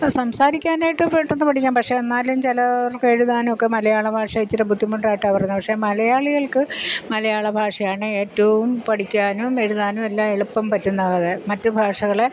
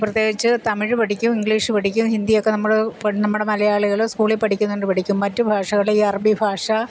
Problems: constant background noise